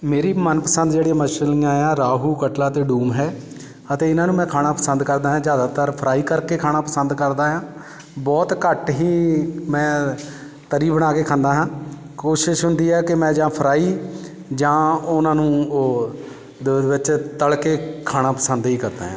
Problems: constant background noise